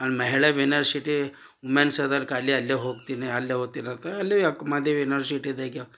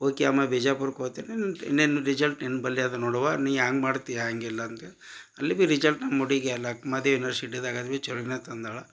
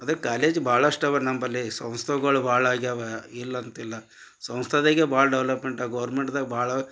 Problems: none marked